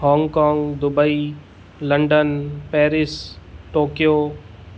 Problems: none marked